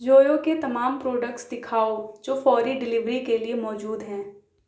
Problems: none marked